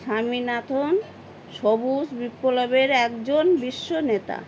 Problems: constant background noise